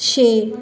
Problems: none marked